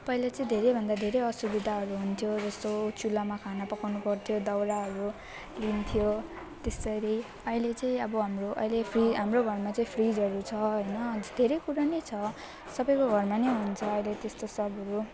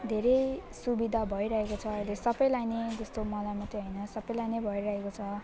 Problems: constant background noise, continuous background conversations